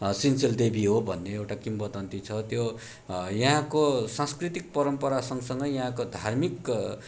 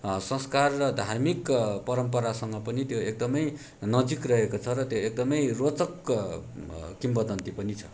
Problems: background sounds at intervals